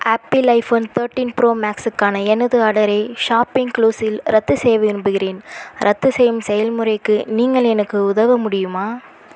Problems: constant background noise